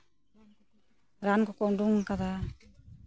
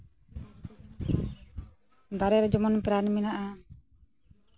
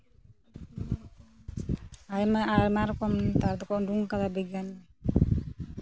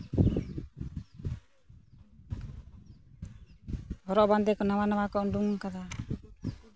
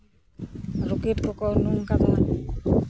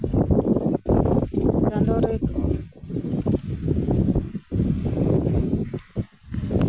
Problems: none marked